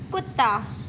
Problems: constant background noise